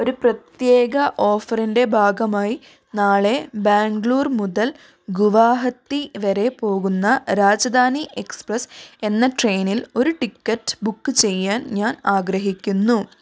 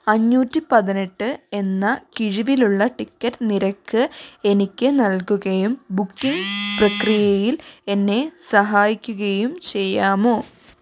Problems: background sounds at intervals